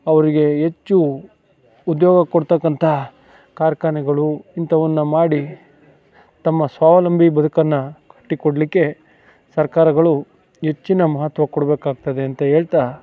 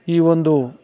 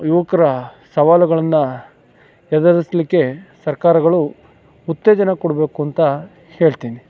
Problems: background sounds at intervals, background conversations at intervals